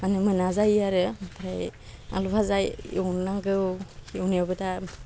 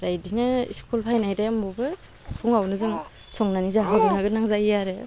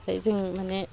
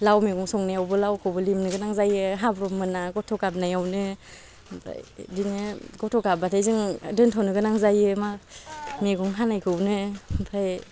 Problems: low volume